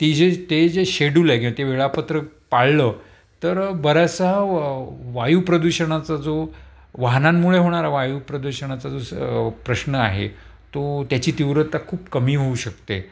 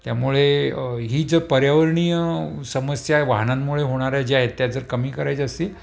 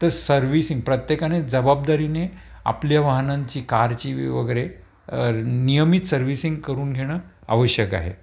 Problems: constant background noise